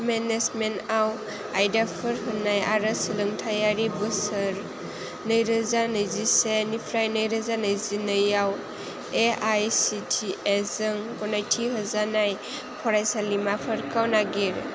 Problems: constant background noise